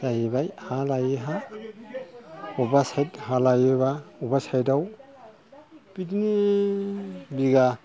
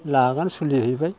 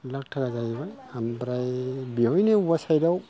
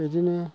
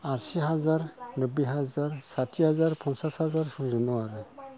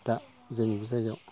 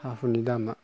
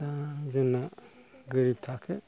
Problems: background sounds at intervals